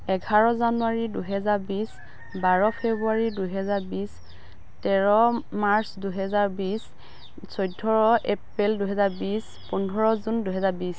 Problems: constant background noise